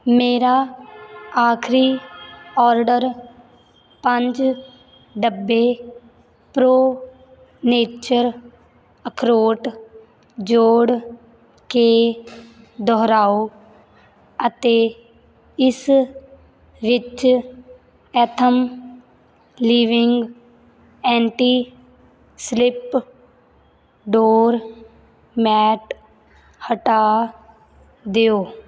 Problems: none marked